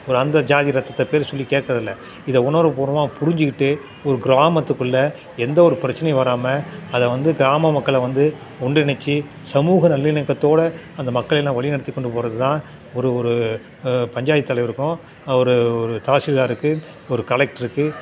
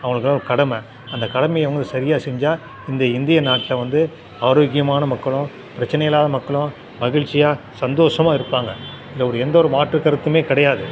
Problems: constant background noise, continuous background conversations